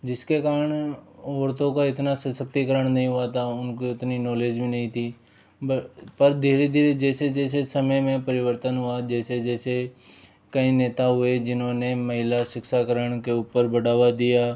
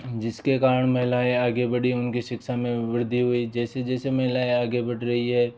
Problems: none marked